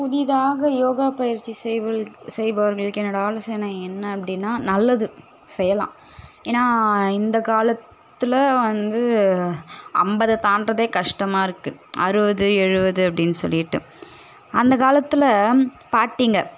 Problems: none marked